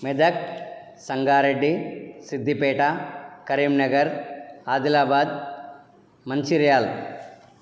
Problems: none marked